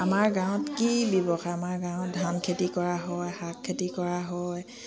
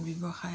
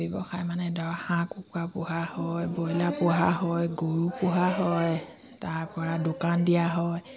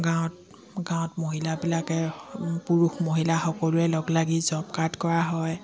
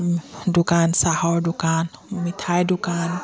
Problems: background sounds at intervals